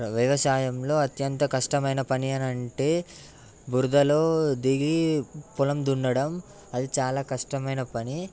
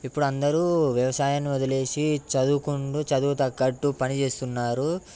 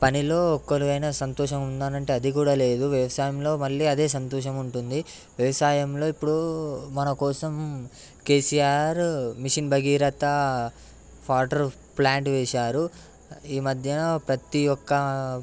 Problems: background sounds at intervals